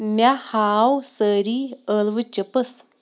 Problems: background sounds at intervals